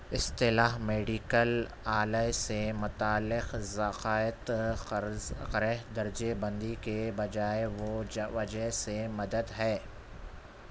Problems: constant background noise